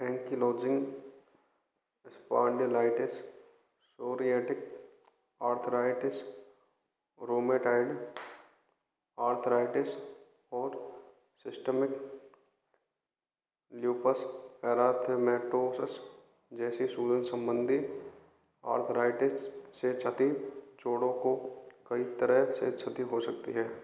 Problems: background sounds at intervals